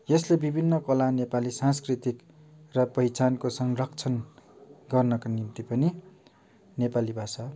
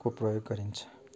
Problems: none marked